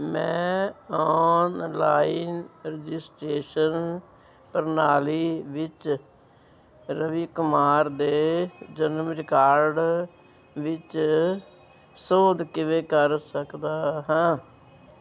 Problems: none marked